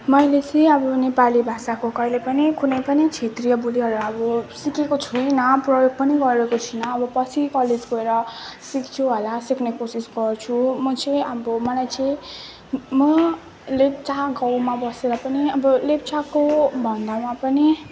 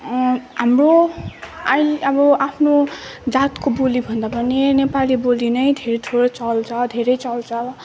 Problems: background sounds at intervals